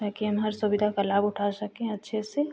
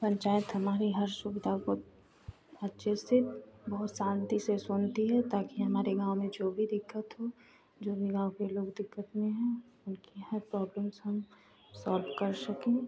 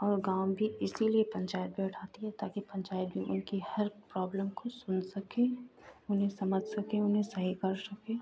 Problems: constant background noise